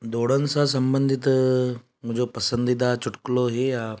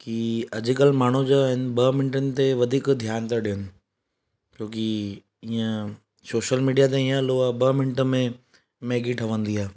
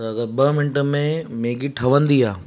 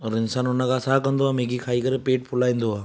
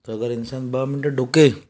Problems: none marked